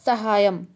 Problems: none marked